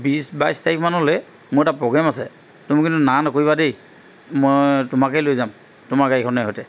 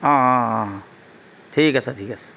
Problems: background sounds at intervals